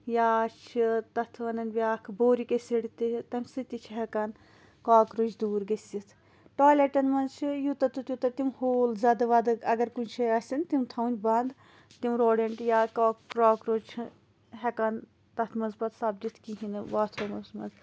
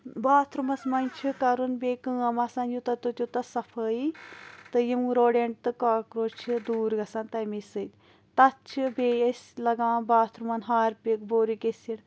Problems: none marked